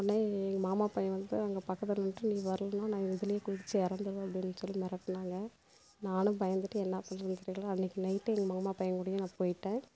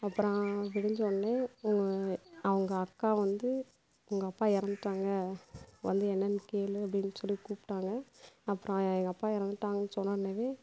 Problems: constant background noise, low volume